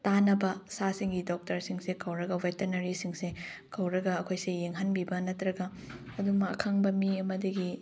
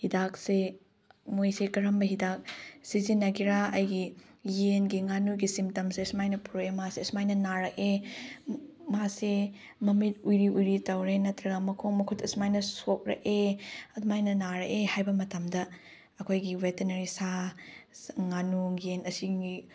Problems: none marked